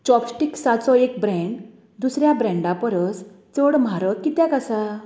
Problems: none marked